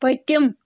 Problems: none marked